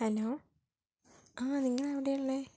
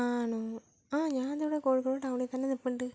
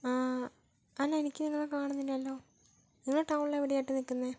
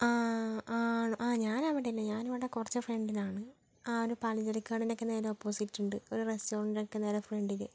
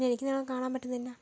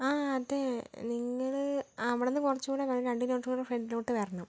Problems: low volume